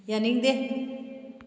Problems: none marked